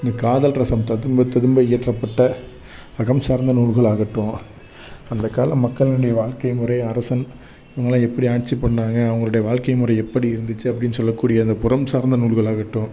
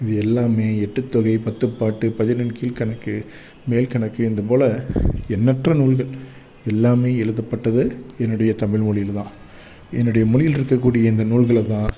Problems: background sounds at intervals